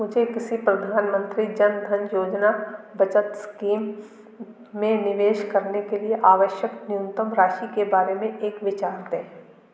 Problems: continuous background conversations